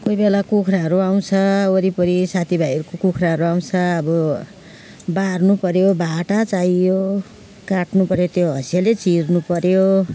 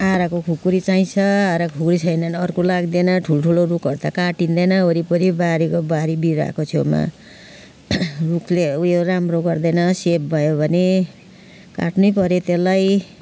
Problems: none marked